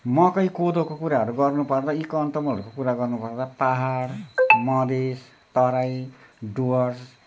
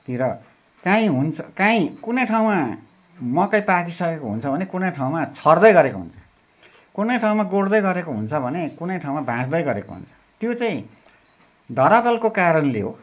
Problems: constant background noise